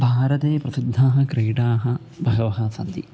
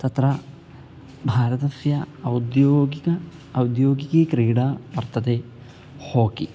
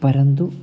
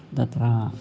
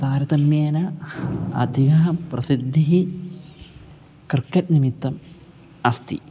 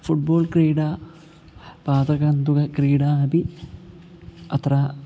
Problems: constant background noise